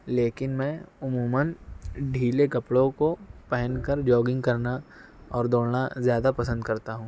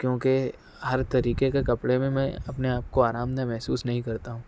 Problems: none marked